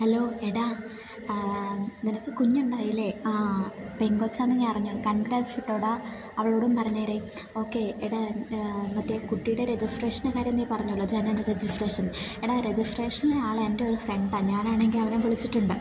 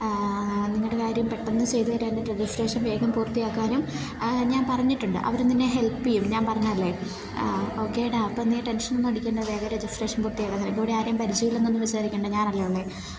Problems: constant background noise